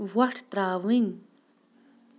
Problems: none marked